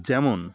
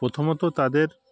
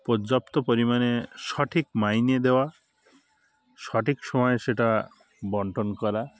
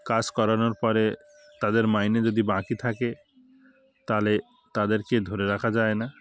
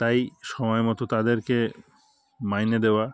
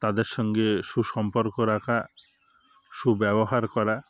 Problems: none marked